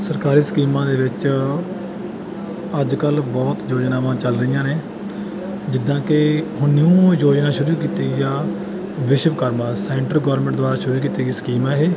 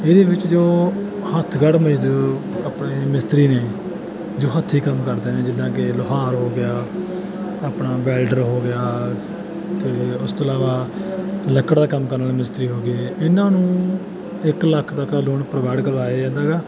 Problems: constant background noise